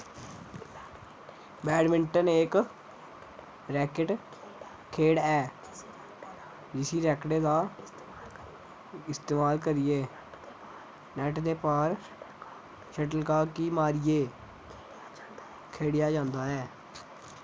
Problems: none marked